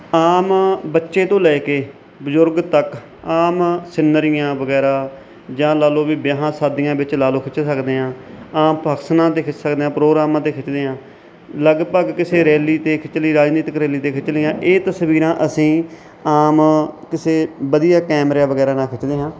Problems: none marked